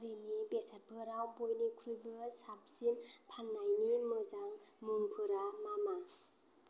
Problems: low volume